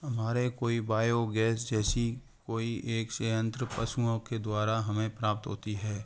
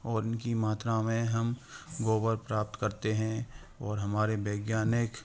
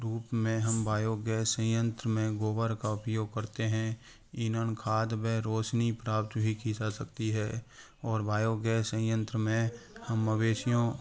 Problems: constant background noise